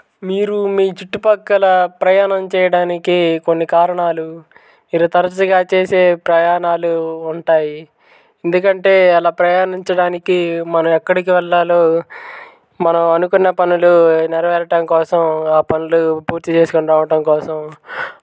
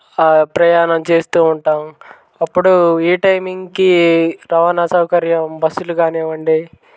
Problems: background sounds at intervals